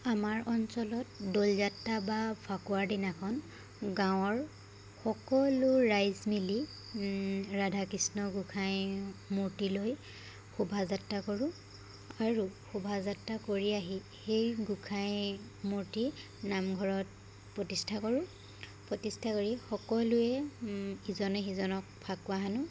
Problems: none marked